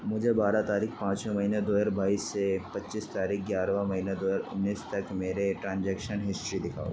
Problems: constant background noise, low volume